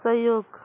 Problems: background sounds at intervals